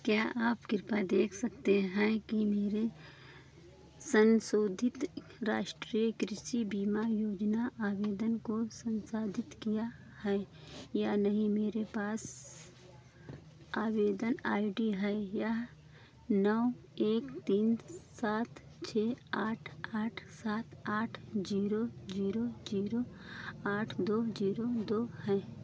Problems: constant background noise